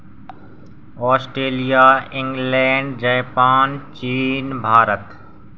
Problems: none marked